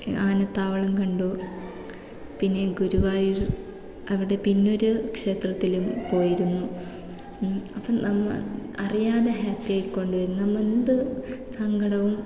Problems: low volume